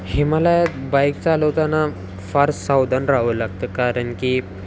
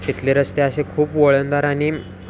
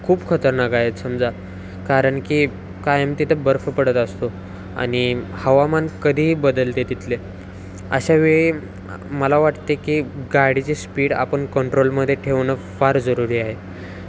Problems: constant background noise, continuous background conversations